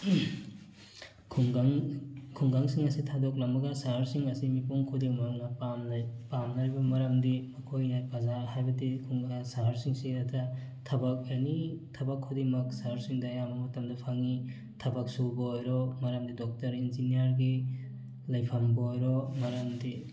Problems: background sounds at intervals, background conversations at intervals